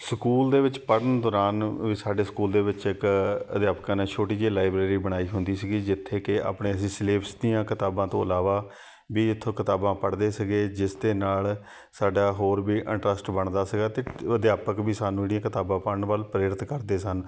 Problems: background sounds at intervals, background conversations at intervals